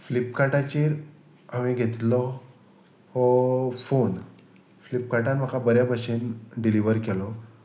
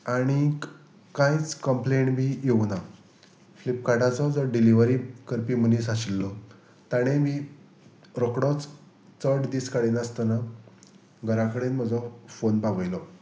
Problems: constant background noise